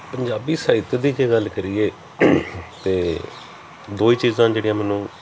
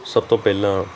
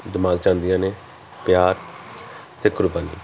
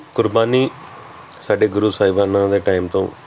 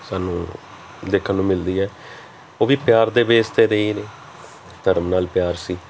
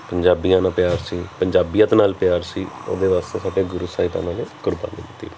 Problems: background sounds at intervals